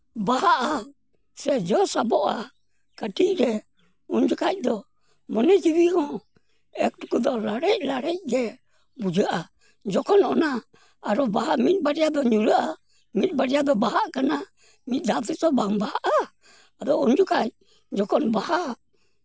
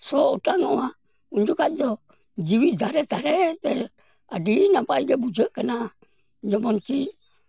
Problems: background sounds at intervals